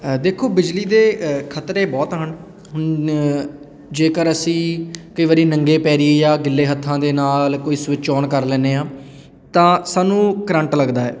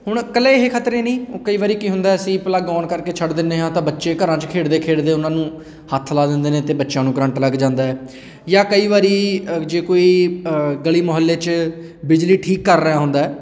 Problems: none marked